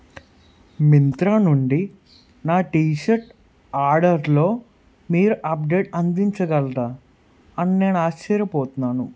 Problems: none marked